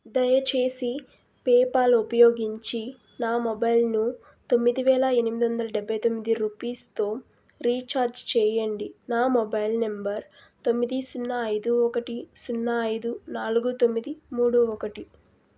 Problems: constant background noise